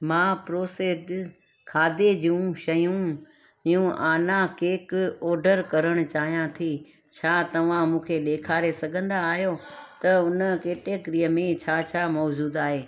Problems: constant background noise, echo